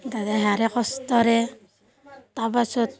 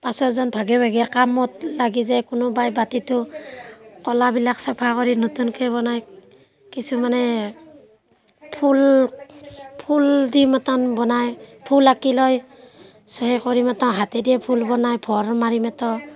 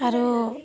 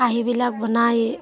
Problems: constant background noise, background conversations at intervals